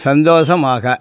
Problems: constant background noise